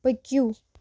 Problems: constant background noise